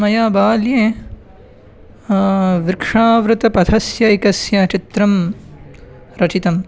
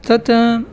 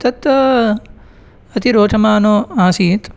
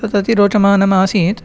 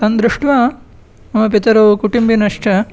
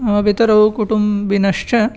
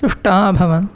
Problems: none marked